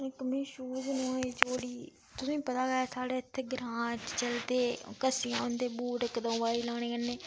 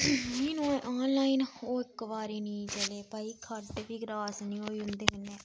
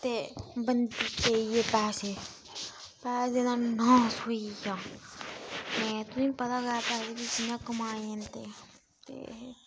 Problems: constant background noise